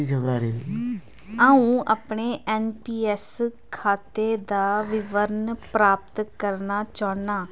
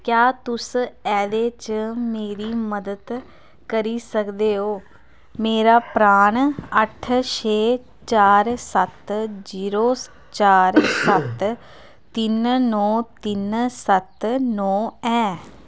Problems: none marked